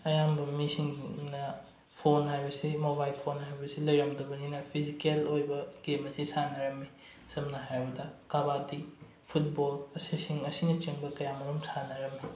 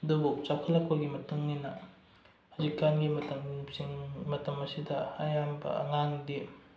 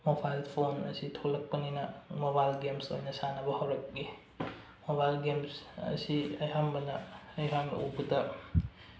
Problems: low volume